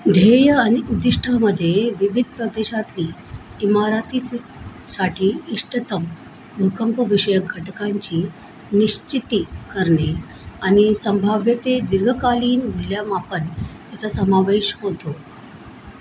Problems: constant background noise